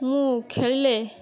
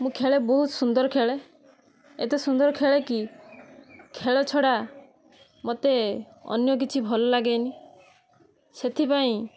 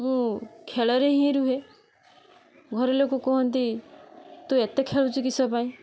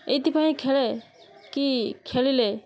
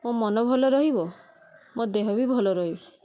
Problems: constant background noise